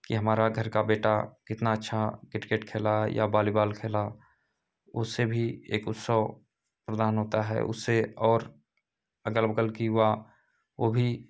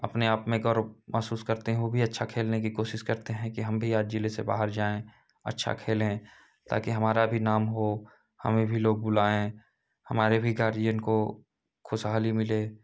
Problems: background sounds at intervals